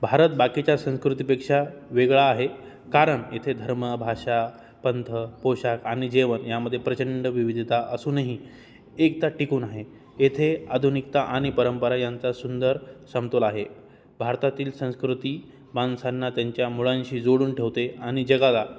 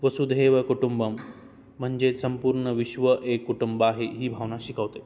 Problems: none marked